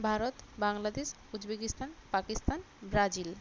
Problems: constant background noise